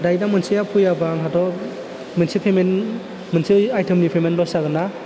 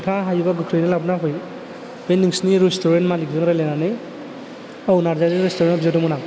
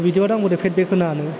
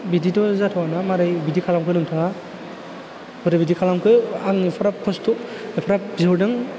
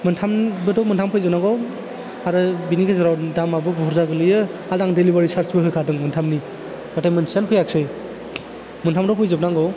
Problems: low volume